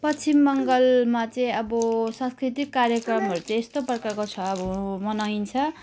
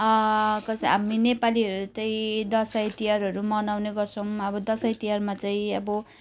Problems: none marked